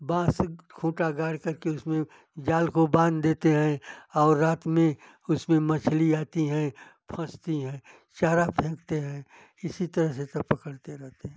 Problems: none marked